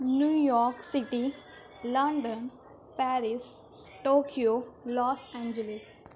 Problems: constant background noise, continuous background conversations